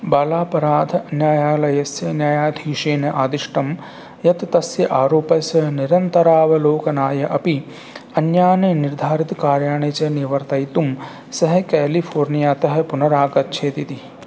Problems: none marked